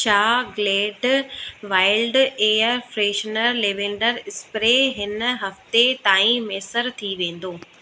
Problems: constant background noise, echo